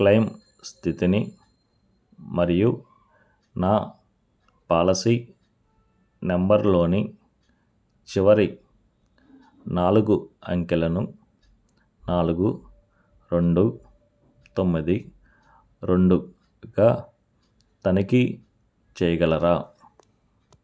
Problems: none marked